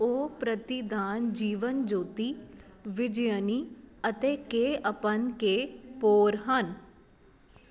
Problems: constant background noise